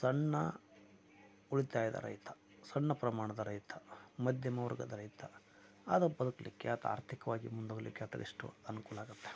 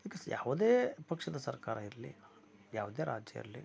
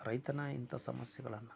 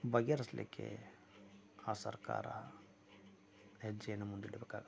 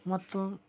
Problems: low volume